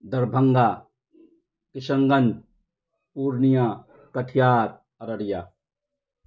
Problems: none marked